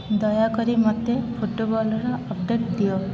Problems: constant background noise